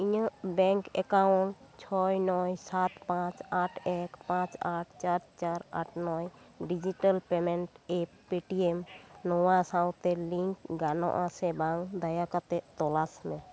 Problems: none marked